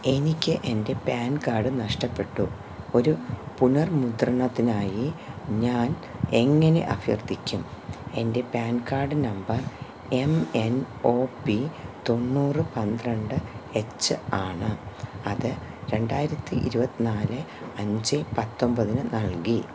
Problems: constant background noise